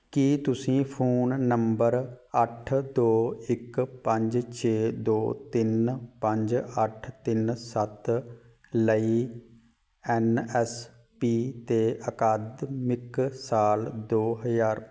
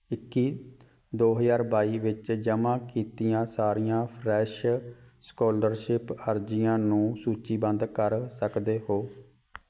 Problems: background sounds at intervals